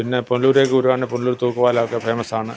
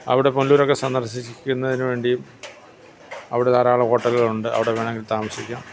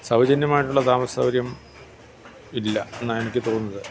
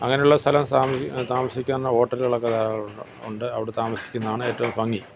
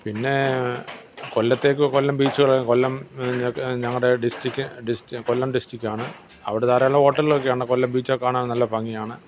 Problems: constant background noise, low volume